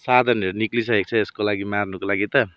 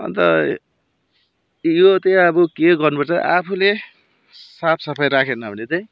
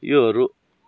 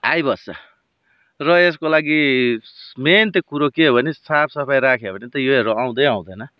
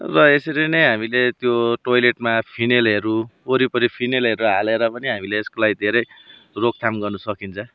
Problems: background sounds at intervals